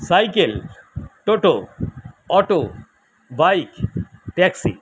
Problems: constant background noise